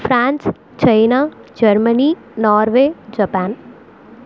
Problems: constant background noise